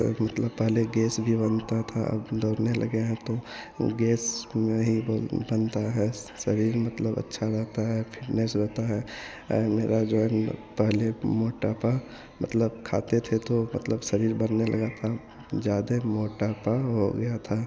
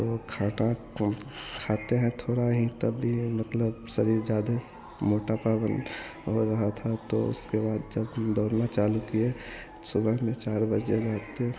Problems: constant background noise